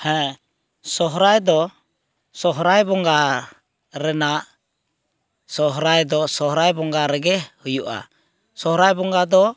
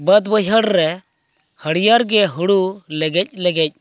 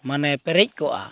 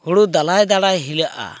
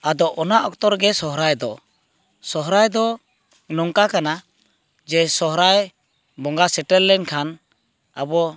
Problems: constant background noise